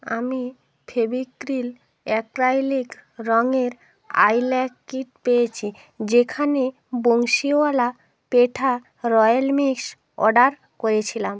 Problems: background conversations at intervals